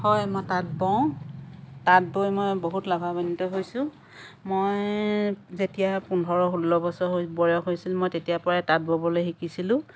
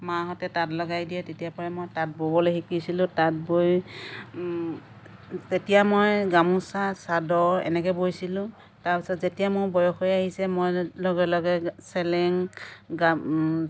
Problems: none marked